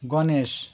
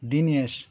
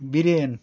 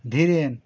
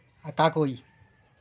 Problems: constant background noise